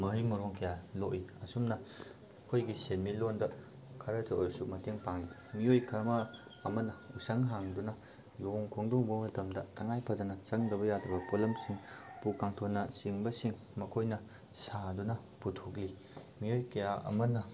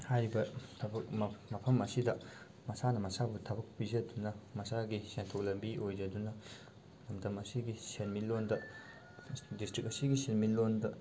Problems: constant background noise